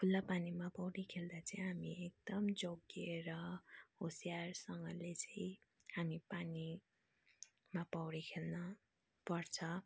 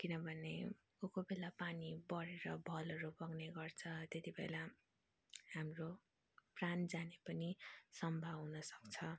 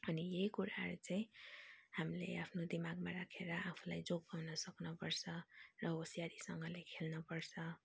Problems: low volume